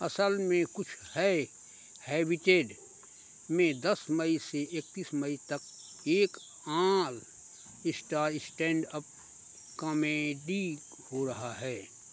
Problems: constant background noise